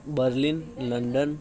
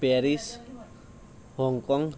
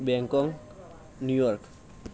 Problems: none marked